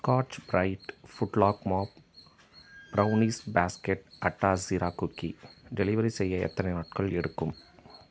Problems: none marked